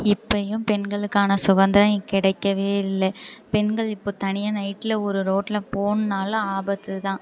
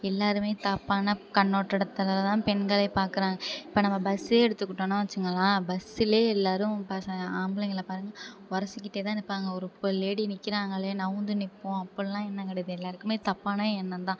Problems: none marked